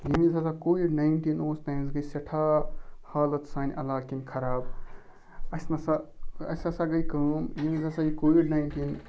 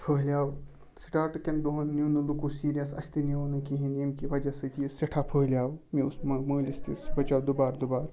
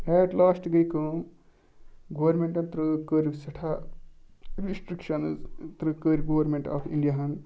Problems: background sounds at intervals